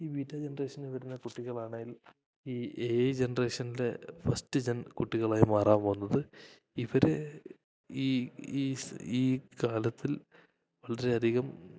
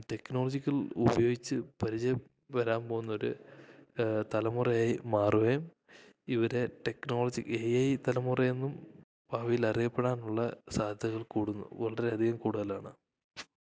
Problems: none marked